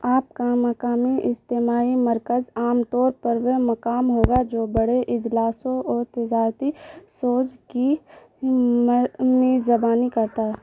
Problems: constant background noise